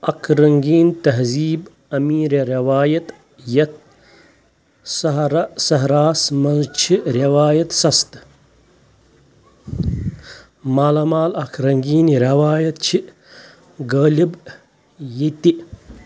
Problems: constant background noise